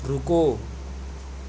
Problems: constant background noise